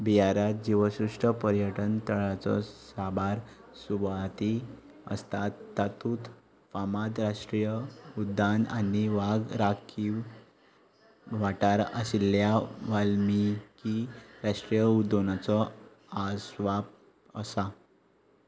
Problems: background sounds at intervals